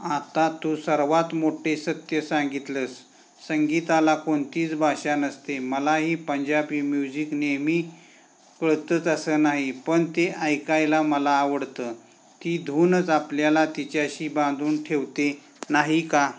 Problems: none marked